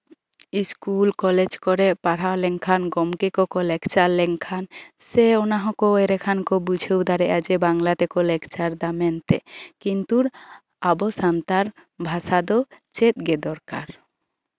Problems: none marked